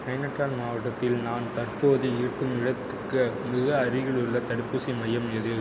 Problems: constant background noise